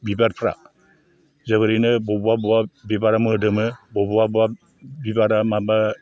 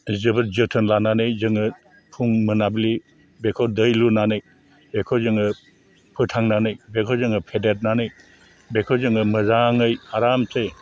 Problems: low volume